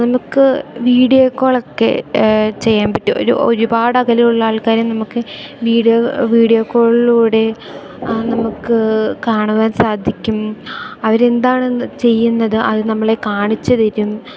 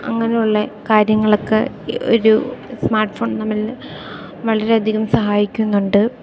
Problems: none marked